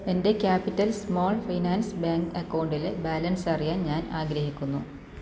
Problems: none marked